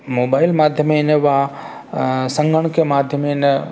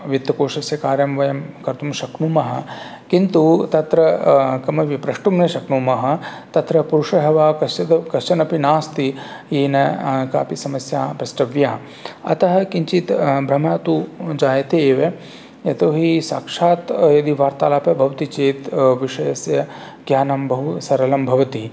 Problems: none marked